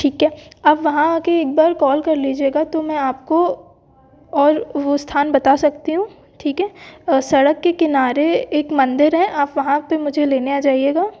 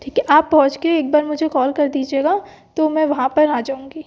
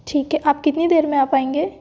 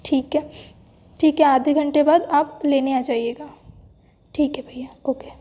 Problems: background sounds at intervals